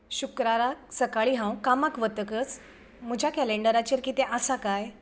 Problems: background sounds at intervals